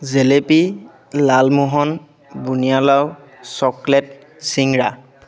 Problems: constant background noise, continuous background conversations